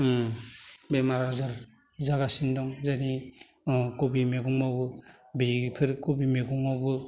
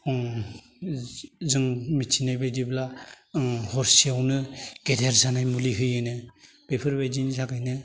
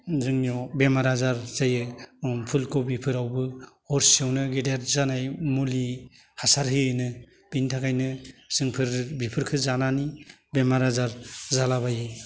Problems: low volume